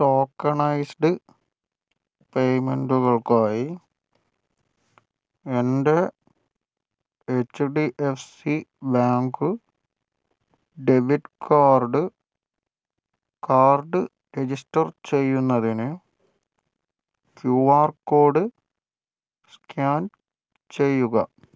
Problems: none marked